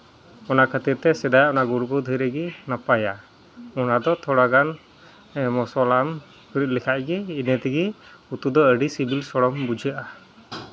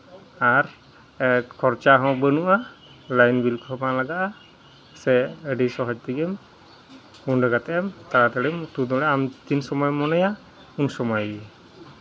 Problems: constant background noise, background conversations at intervals